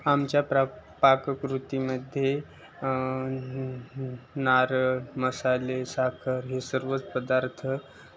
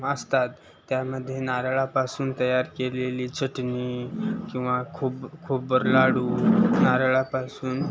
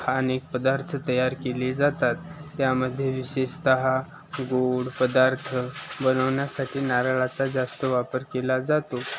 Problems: none marked